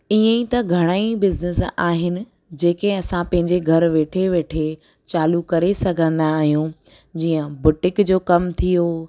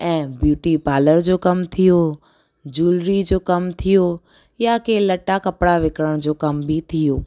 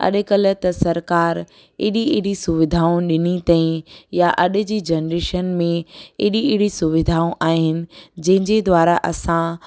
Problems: none marked